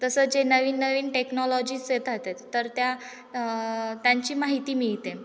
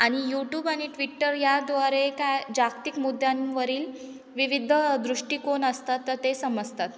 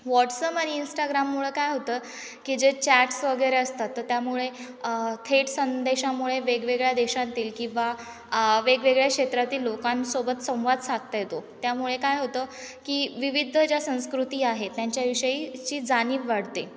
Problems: none marked